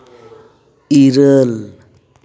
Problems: echo